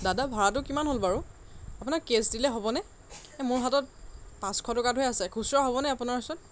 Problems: none marked